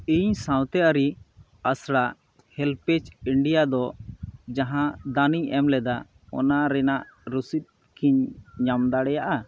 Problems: none marked